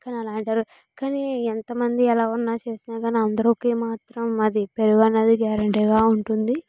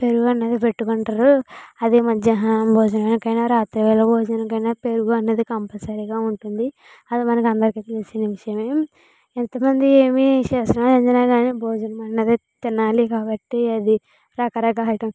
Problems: none marked